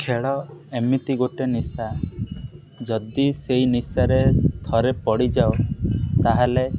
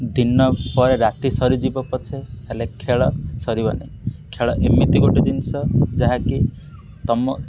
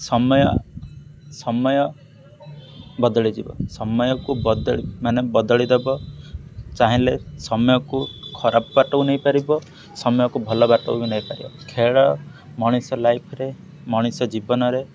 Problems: none marked